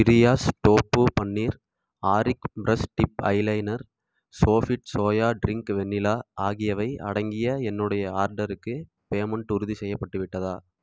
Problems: none marked